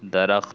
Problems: constant background noise